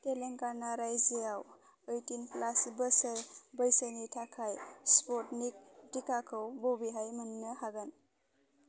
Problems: none marked